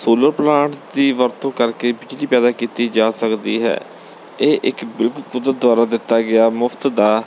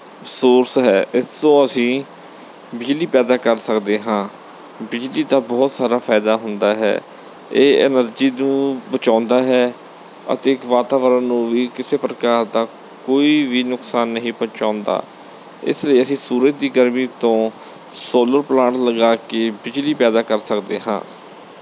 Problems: background sounds at intervals